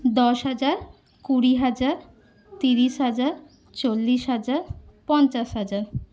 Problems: constant background noise